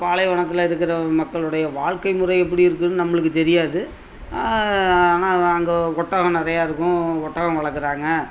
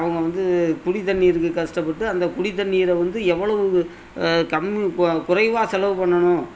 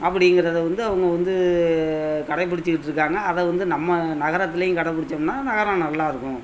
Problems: none marked